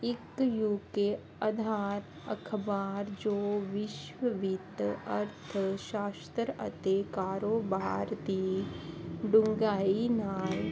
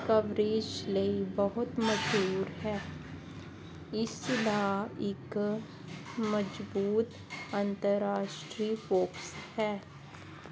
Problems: constant background noise